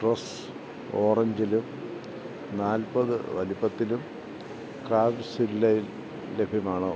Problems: constant background noise